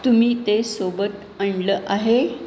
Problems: constant background noise